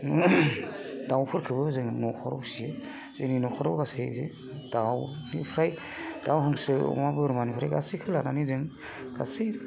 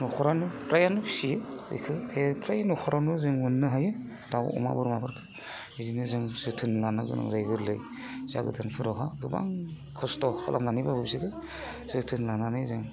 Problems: constant background noise